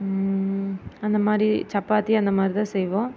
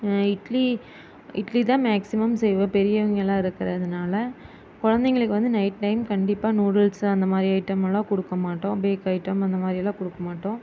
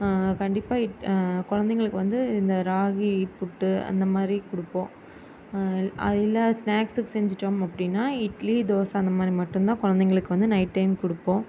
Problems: constant background noise